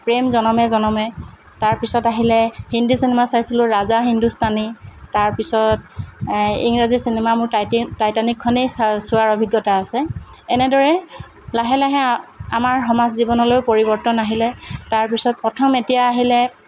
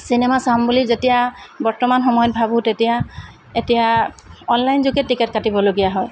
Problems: none marked